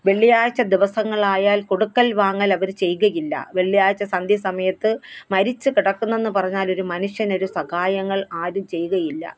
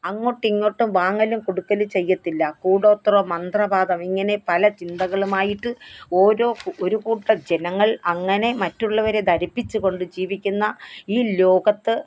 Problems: none marked